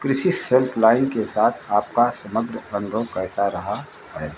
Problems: constant background noise